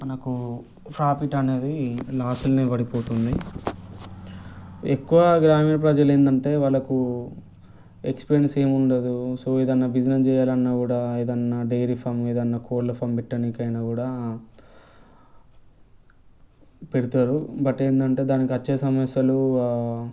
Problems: background conversations at intervals